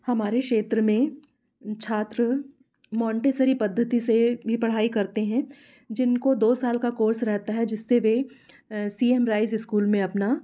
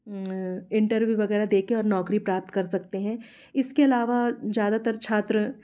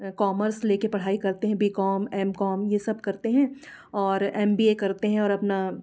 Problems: background sounds at intervals